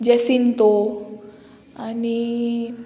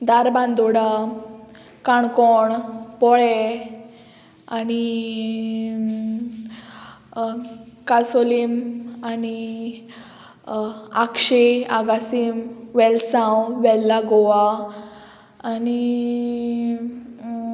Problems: none marked